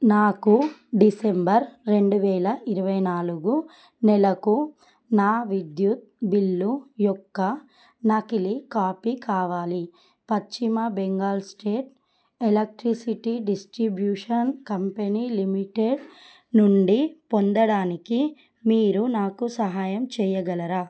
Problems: none marked